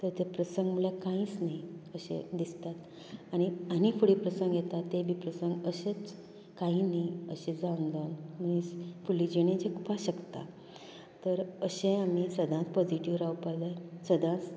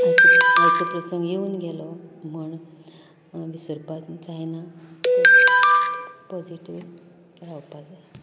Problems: constant background noise